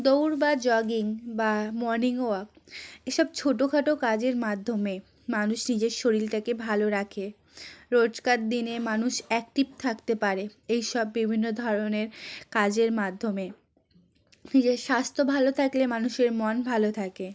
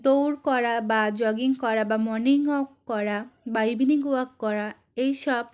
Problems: none marked